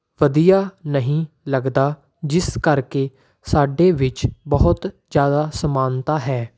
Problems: none marked